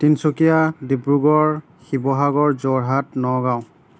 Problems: none marked